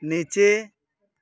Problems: none marked